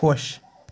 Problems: constant background noise